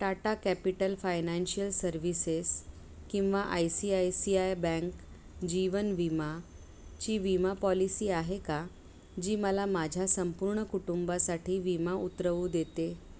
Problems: background sounds at intervals